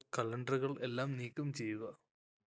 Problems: low volume